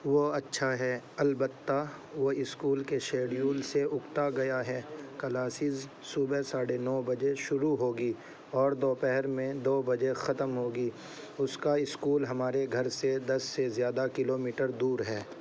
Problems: constant background noise